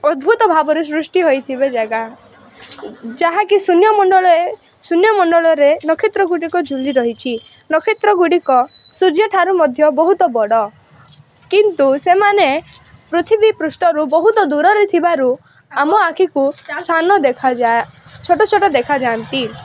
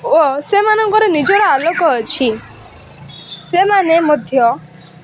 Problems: constant background noise, continuous background conversations